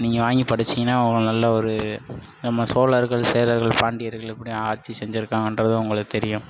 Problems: constant background noise